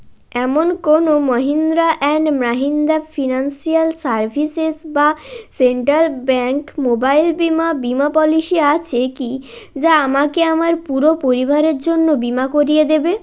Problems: constant background noise